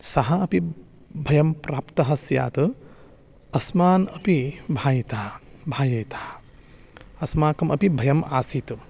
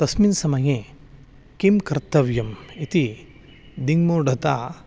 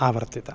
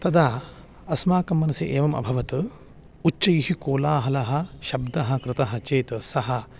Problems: none marked